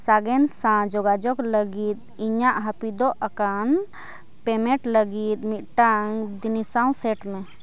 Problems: constant background noise